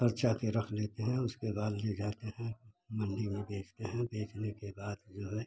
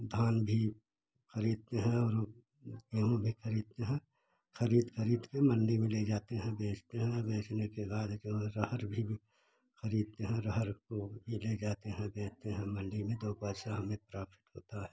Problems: none marked